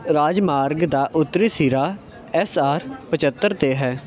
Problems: none marked